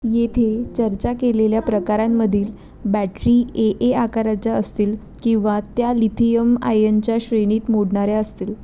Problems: none marked